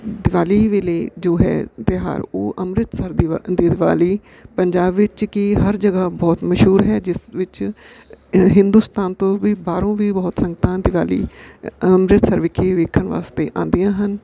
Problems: background sounds at intervals